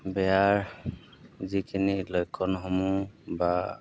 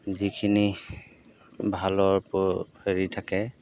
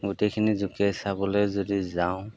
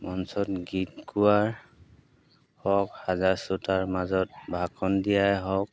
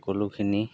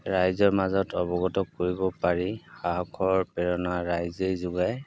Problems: background sounds at intervals